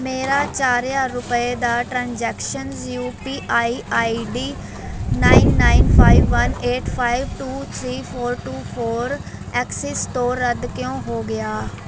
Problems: constant background noise